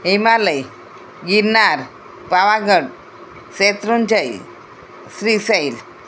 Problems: none marked